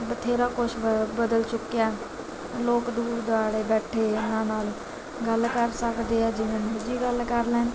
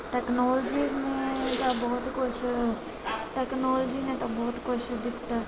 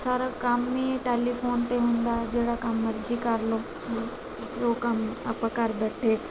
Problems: constant background noise, background conversations at intervals